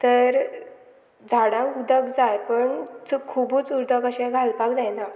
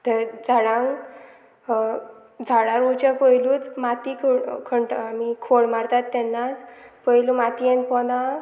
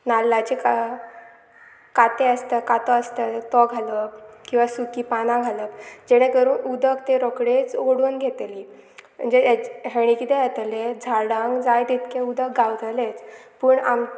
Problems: constant background noise